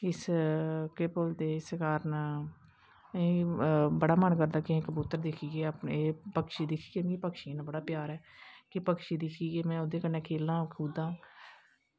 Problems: constant background noise